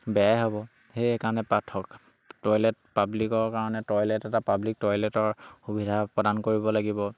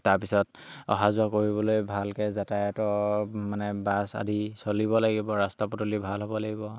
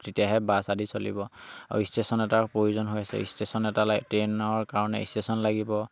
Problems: none marked